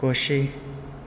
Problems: constant background noise